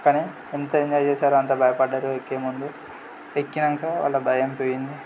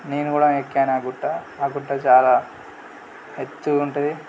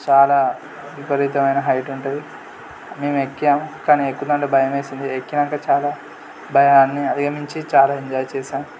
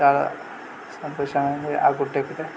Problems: constant background noise